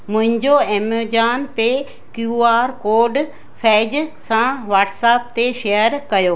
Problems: constant background noise, echo